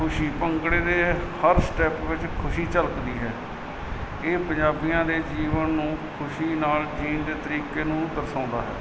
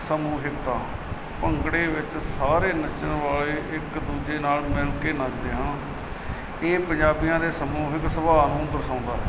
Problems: none marked